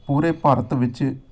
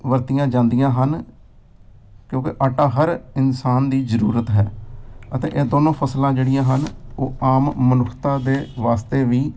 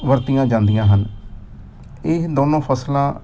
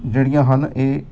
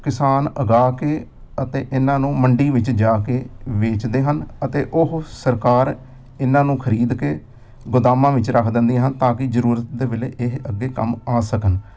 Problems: none marked